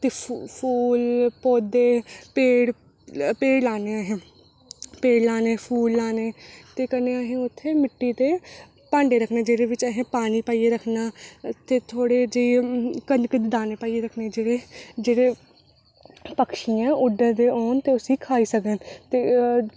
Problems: none marked